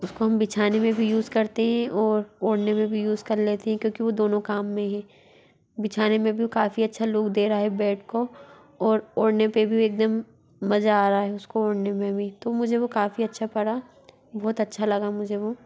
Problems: constant background noise, background conversations at intervals